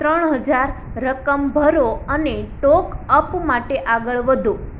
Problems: constant background noise